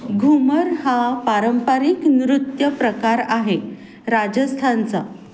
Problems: none marked